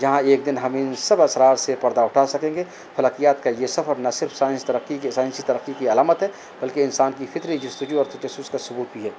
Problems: constant background noise